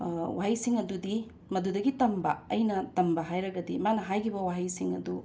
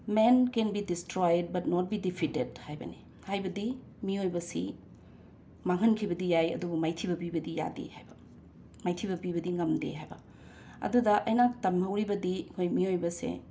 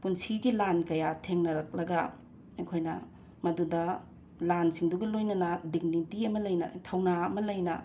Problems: background sounds at intervals